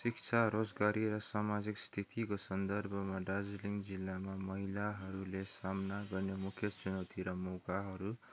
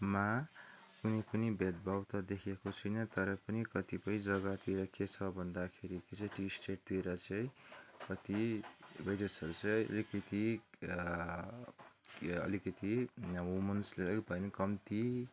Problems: background sounds at intervals, background conversations at intervals